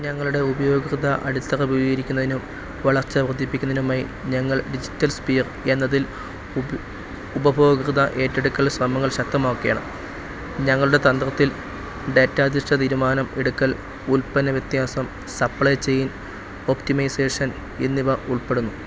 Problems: none marked